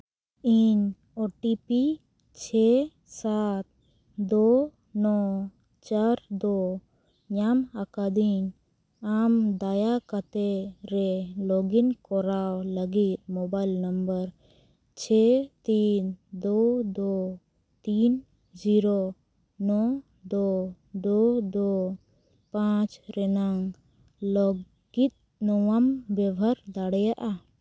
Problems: none marked